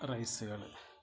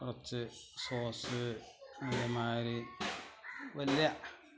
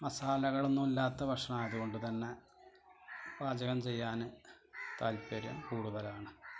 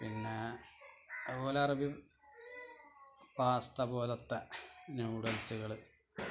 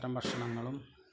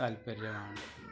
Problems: constant background noise, low volume